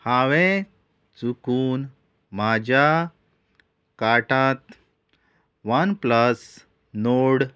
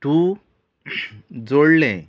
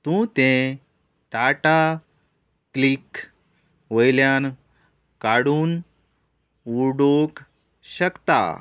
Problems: none marked